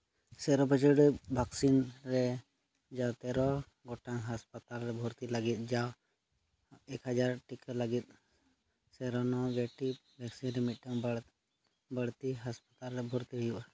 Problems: low volume